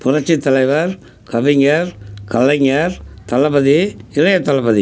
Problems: background sounds at intervals